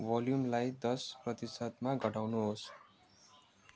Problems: low volume